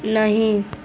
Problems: constant background noise